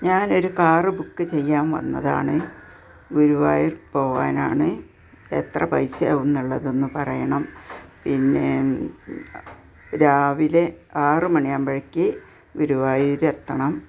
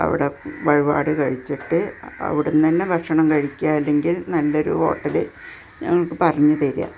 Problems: background sounds at intervals